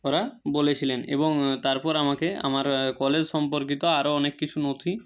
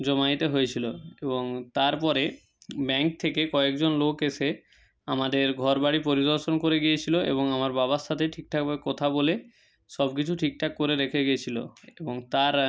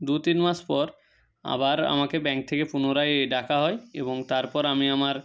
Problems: none marked